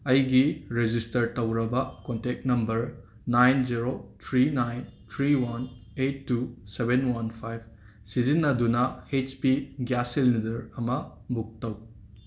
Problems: background sounds at intervals